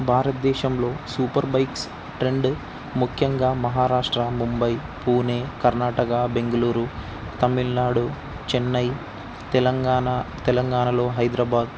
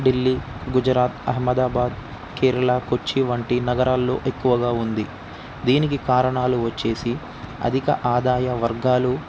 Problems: constant background noise